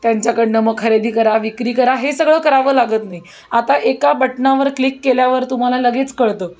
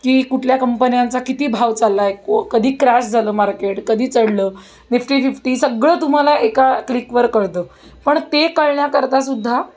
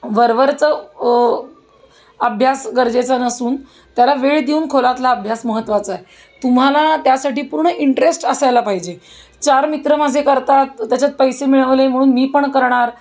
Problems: constant background noise